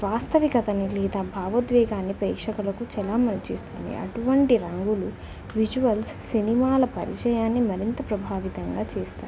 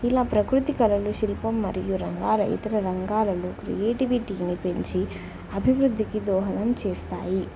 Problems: none marked